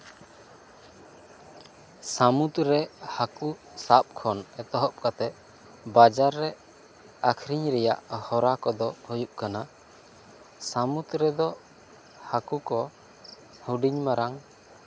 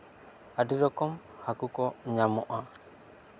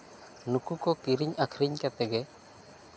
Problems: none marked